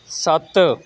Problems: constant background noise